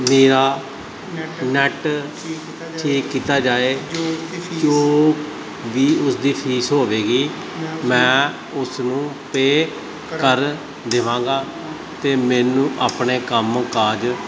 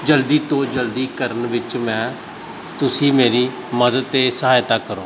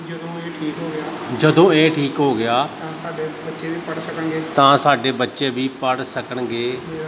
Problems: none marked